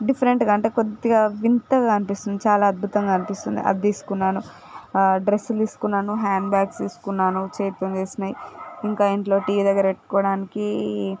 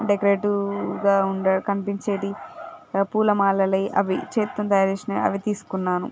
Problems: background sounds at intervals